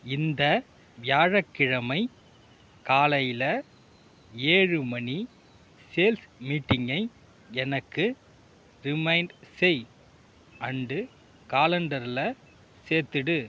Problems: none marked